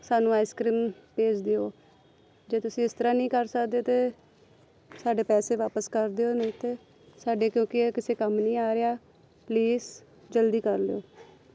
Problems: background sounds at intervals